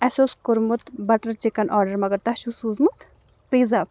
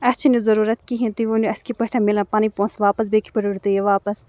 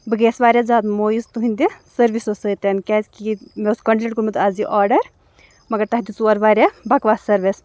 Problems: background sounds at intervals